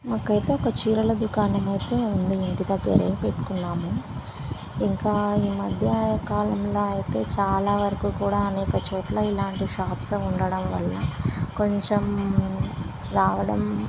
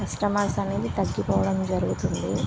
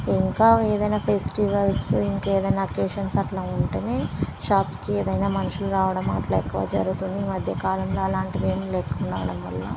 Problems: constant background noise